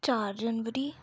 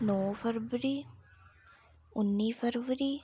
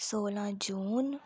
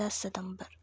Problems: low volume